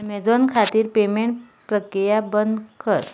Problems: background sounds at intervals